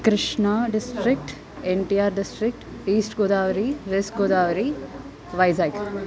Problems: constant background noise, continuous background conversations